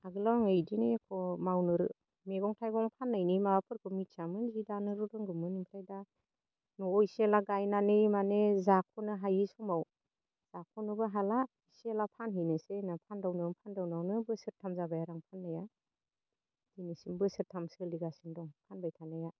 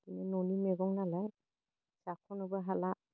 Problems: low volume